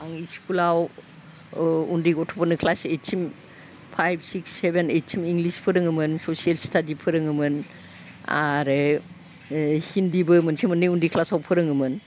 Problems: constant background noise